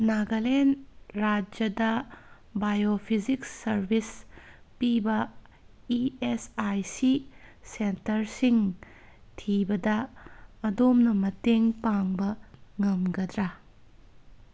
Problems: background sounds at intervals